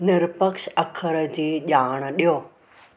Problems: constant background noise